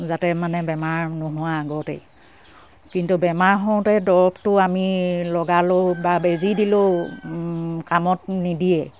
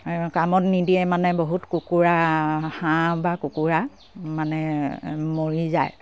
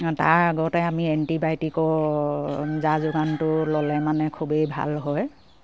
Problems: none marked